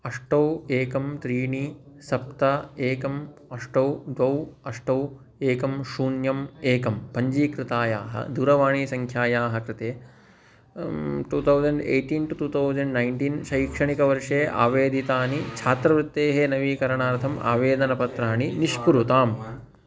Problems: background conversations at intervals